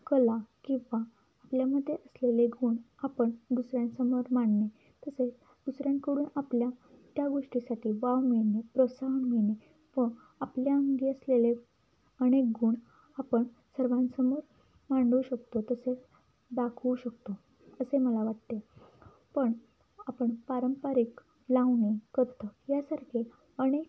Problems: none marked